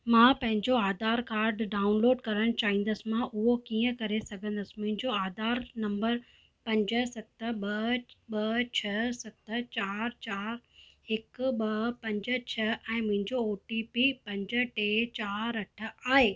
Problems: none marked